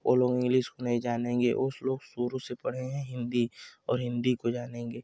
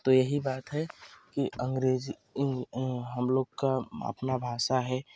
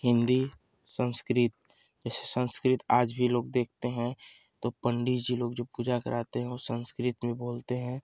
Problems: constant background noise